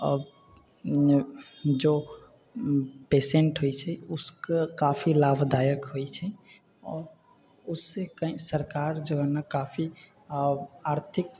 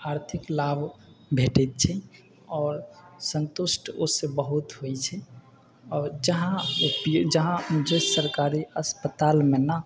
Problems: none marked